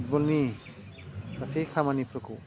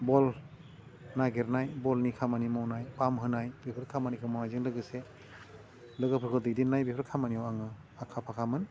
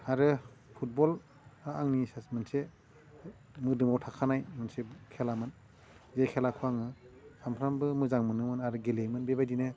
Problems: low volume